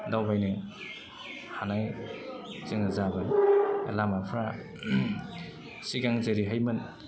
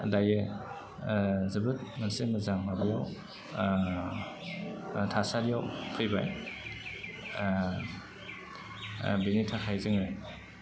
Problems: low volume